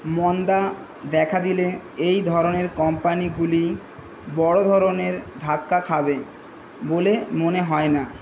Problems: constant background noise